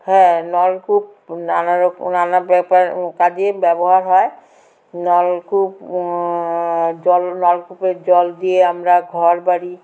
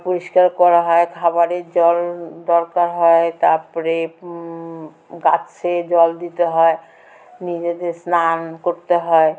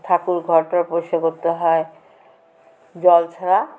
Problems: constant background noise, background conversations at intervals